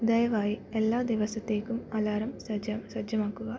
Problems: low volume